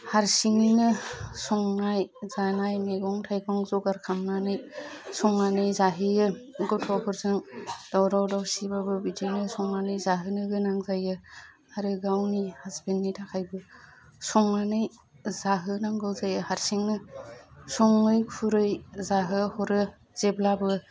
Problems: low volume